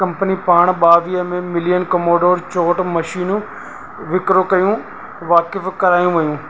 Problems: constant background noise